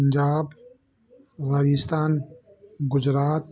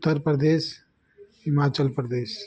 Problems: constant background noise